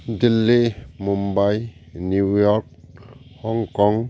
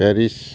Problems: none marked